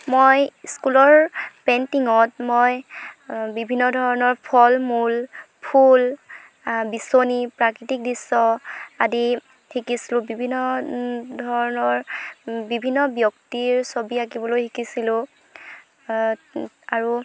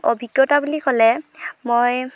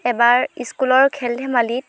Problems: constant background noise